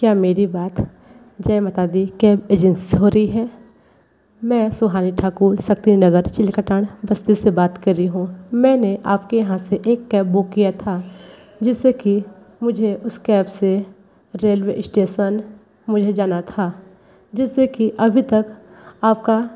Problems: none marked